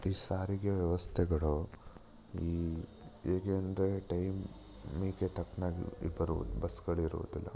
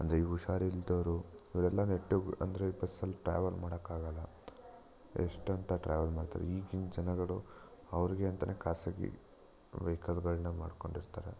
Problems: background sounds at intervals